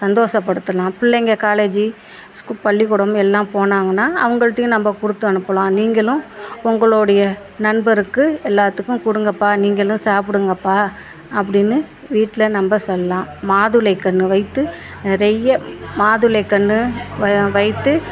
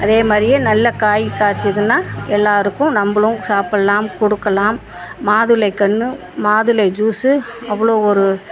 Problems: background sounds at intervals